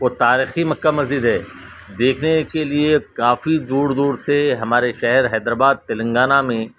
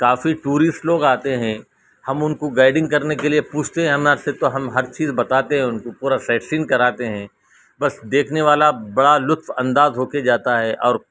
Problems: constant background noise